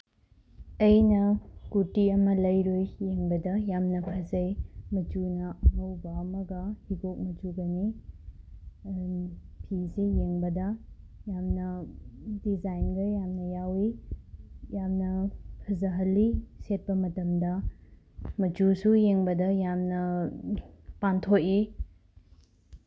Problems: background sounds at intervals